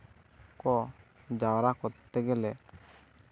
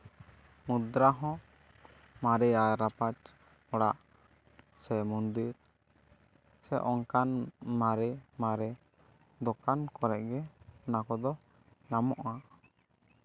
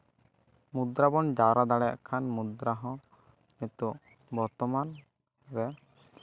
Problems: none marked